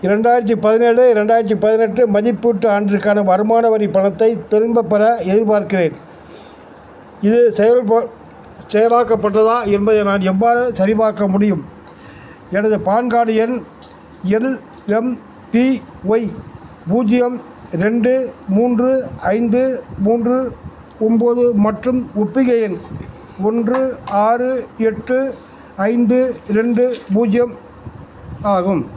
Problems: none marked